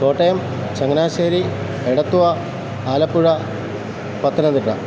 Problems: constant background noise